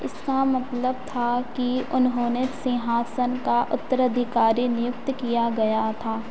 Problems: constant background noise